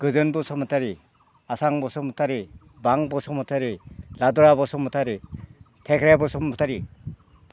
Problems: none marked